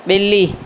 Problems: constant background noise